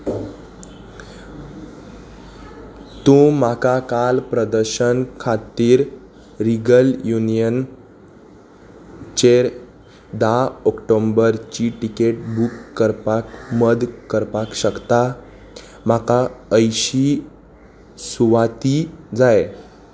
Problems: constant background noise